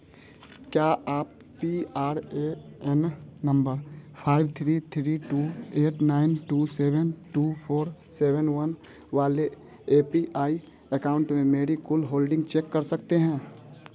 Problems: constant background noise